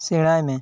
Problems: none marked